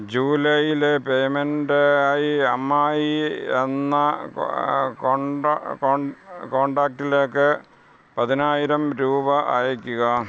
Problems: none marked